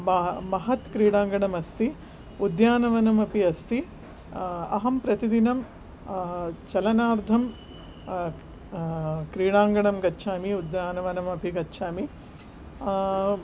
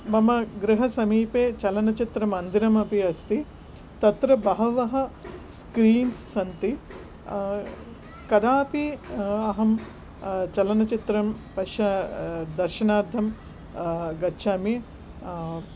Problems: background sounds at intervals